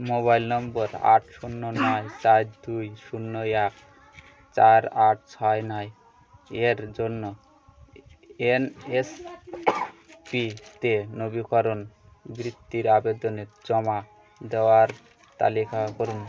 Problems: constant background noise, continuous background conversations